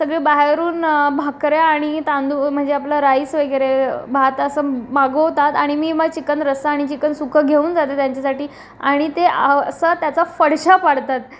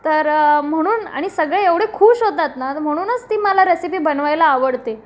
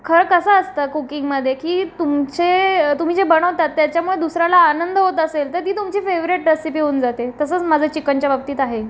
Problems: constant background noise, continuous background conversations